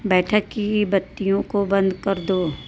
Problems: constant background noise